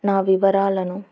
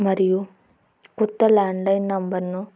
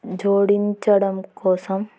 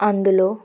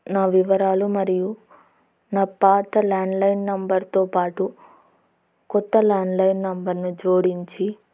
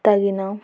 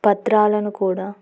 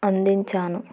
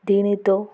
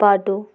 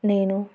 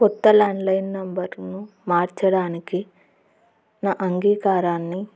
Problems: constant background noise